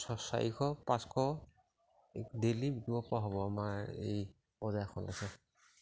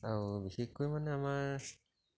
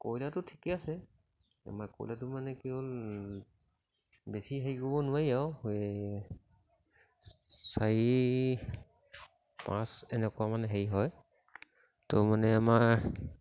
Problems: none marked